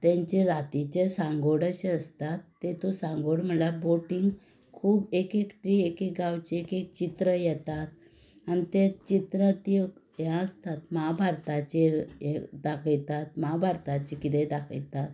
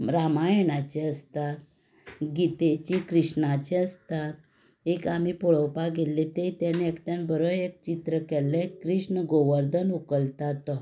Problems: background sounds at intervals